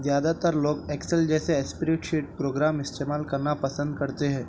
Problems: none marked